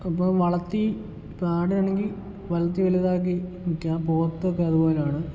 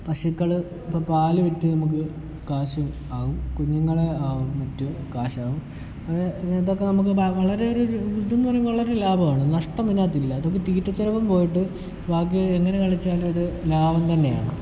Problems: low volume